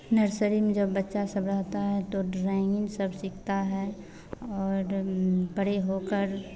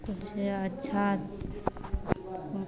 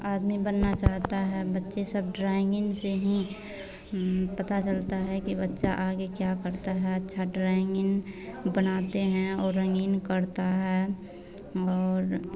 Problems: none marked